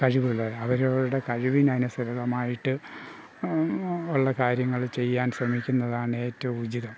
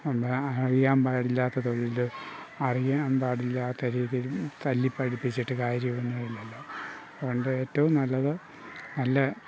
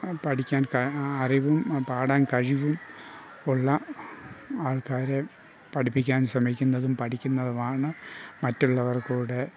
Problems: background sounds at intervals, low volume